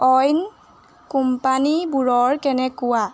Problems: background sounds at intervals